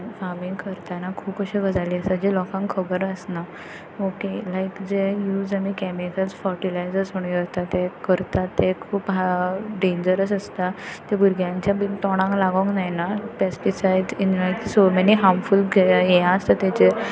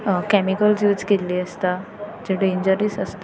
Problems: none marked